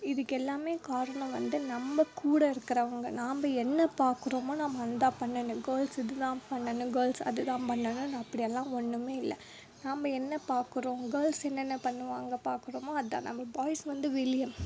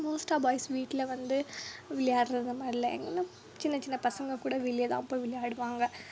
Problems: low volume